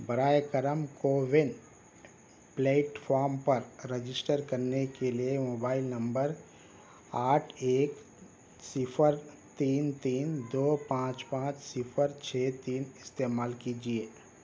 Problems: none marked